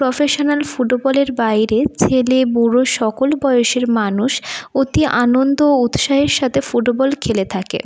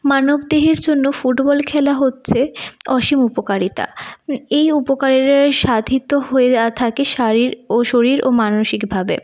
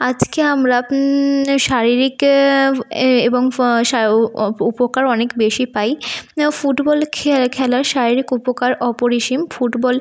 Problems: low volume